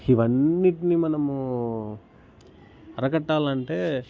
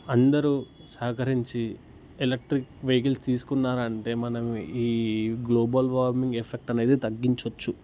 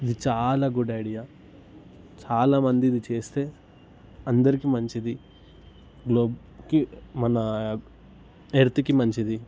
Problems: constant background noise